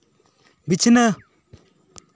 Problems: none marked